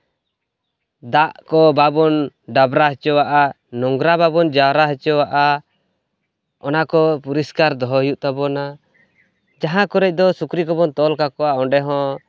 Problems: constant background noise